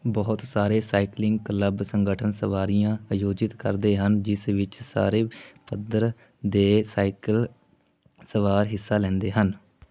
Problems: none marked